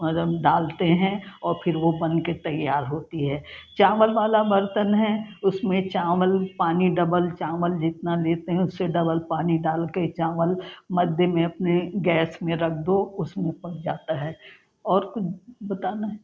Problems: background conversations at intervals